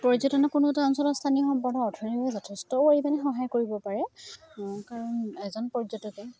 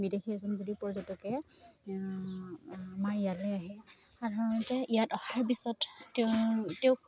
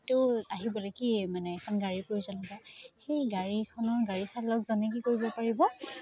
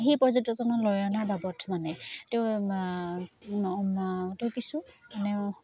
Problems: background sounds at intervals